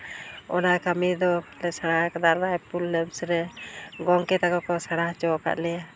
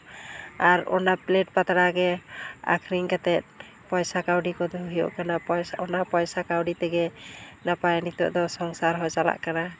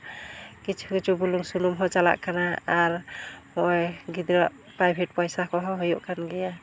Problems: none marked